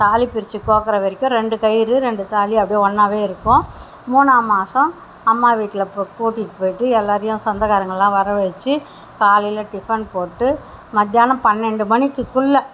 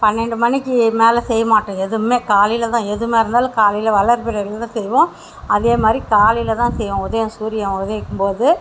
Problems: none marked